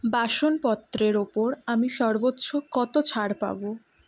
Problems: none marked